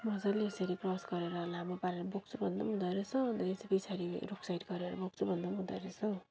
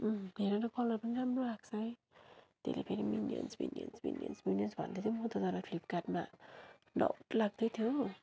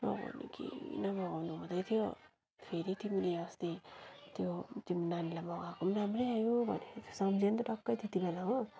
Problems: low volume